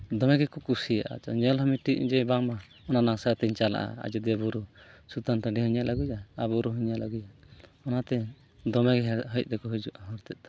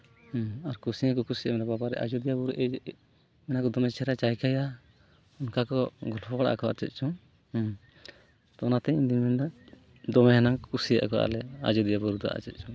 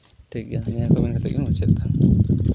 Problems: background sounds at intervals